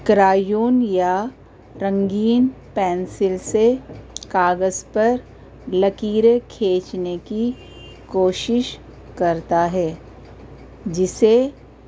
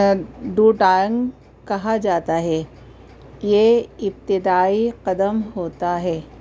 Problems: constant background noise